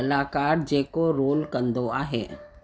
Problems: constant background noise, echo